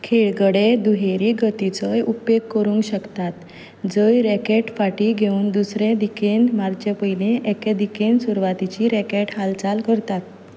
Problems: background sounds at intervals